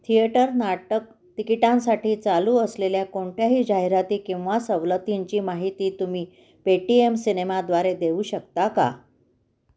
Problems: background sounds at intervals, echo